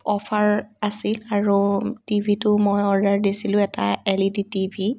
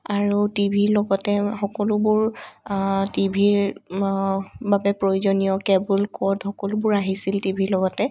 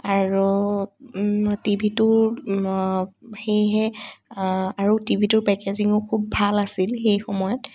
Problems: none marked